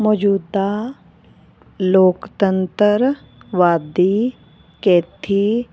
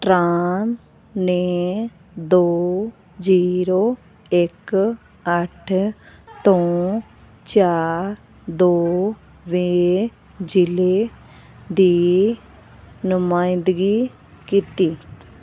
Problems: none marked